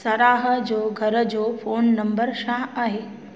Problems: constant background noise, echo